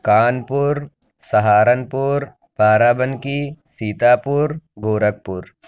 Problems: constant background noise